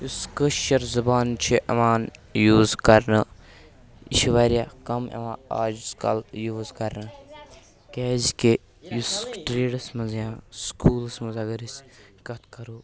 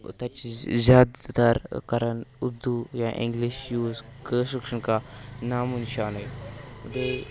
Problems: background sounds at intervals